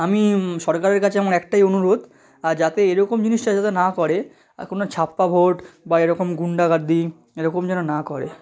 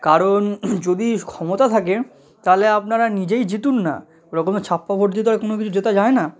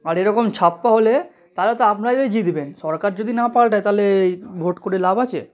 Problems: none marked